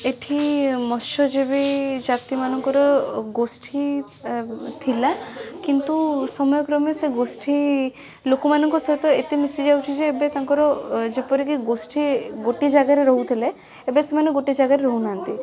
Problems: constant background noise, continuous background conversations